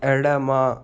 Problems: constant background noise